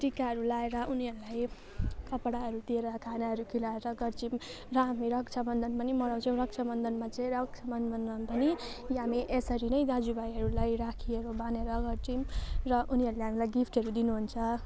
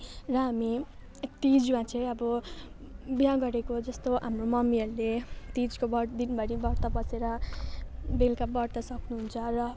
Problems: constant background noise